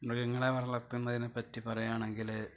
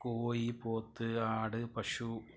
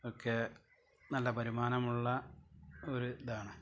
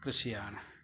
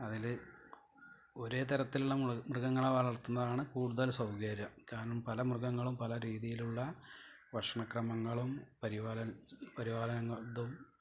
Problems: low volume